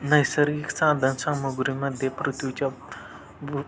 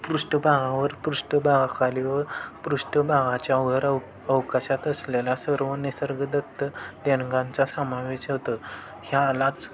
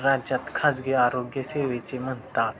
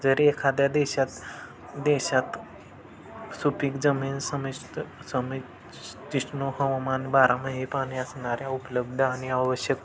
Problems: constant background noise